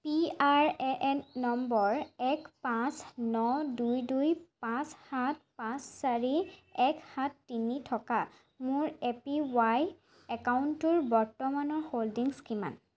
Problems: constant background noise